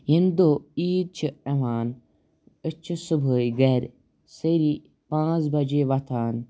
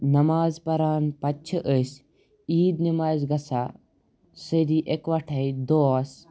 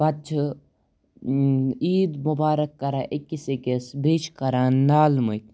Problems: background sounds at intervals